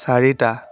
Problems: none marked